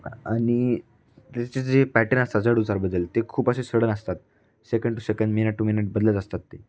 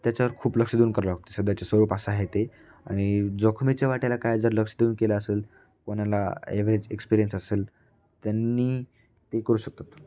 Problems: none marked